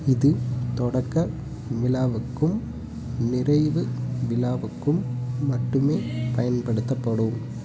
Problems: background sounds at intervals